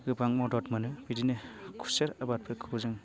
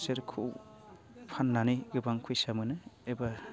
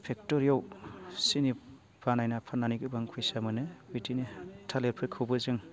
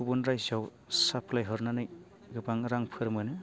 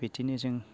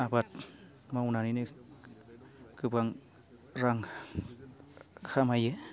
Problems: constant background noise